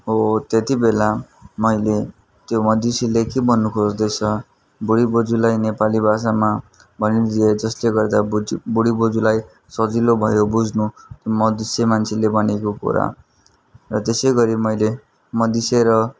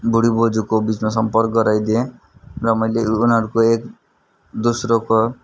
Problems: constant background noise